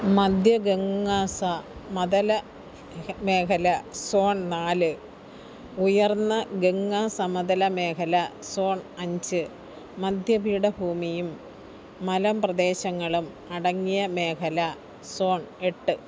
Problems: low volume